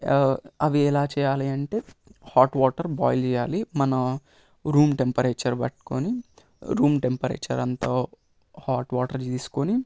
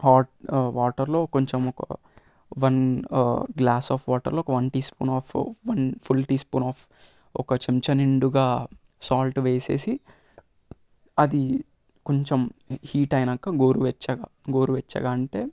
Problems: constant background noise